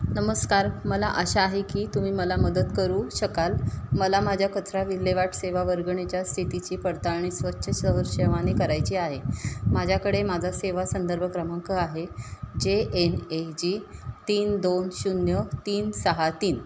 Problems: none marked